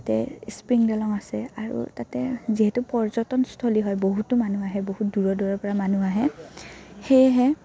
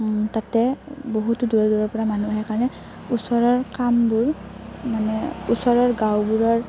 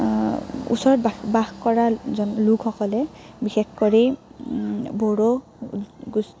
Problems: constant background noise, background conversations at intervals